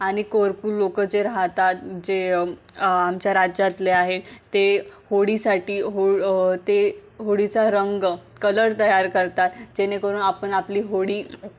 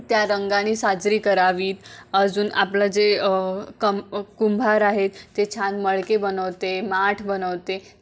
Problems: constant background noise